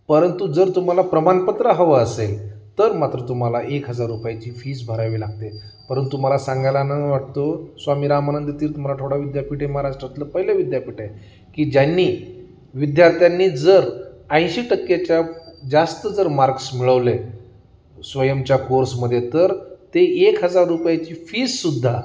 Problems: constant background noise